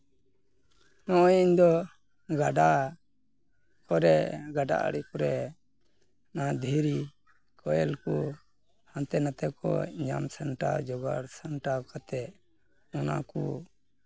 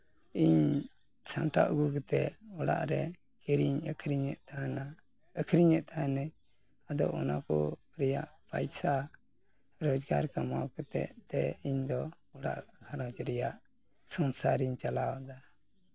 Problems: background conversations at intervals